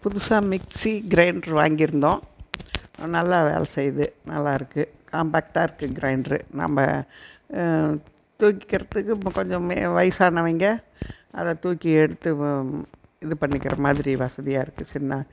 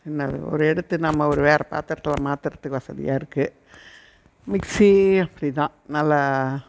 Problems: background sounds at intervals